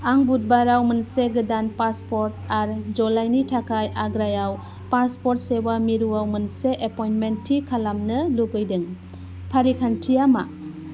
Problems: constant background noise